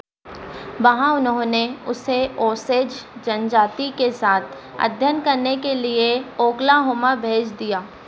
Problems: none marked